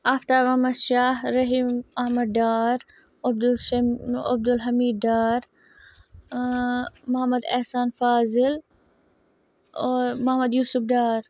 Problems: none marked